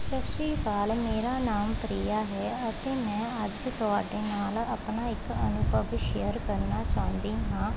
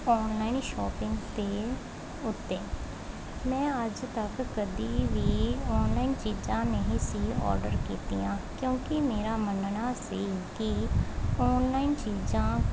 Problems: constant background noise